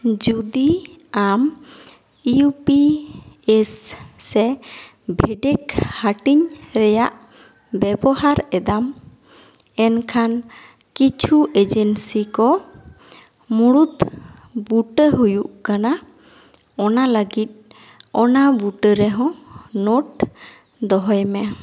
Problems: echo